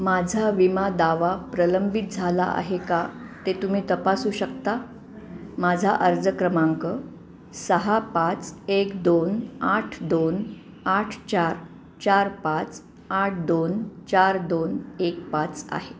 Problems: none marked